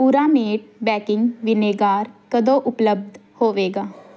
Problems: background sounds at intervals